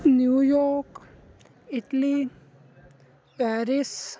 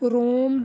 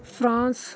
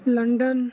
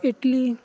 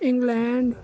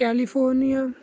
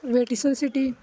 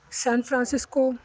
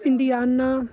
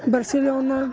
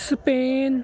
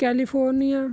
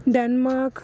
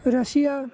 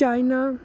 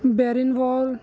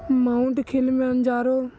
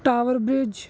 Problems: constant background noise